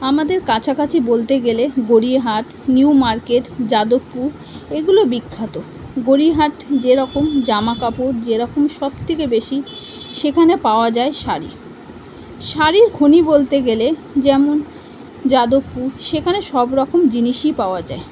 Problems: constant background noise